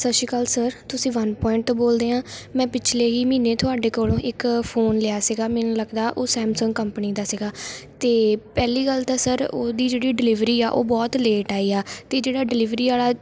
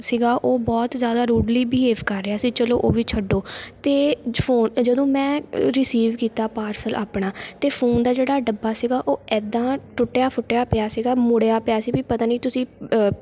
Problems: none marked